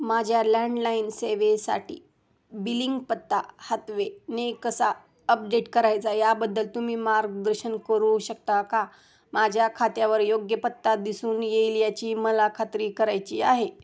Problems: none marked